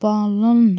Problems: constant background noise